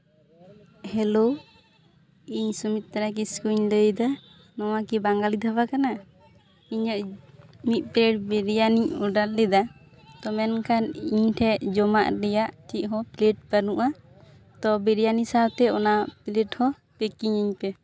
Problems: constant background noise